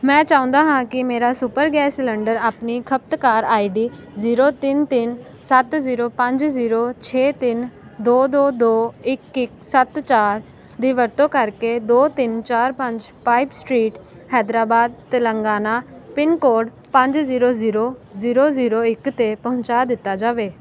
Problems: none marked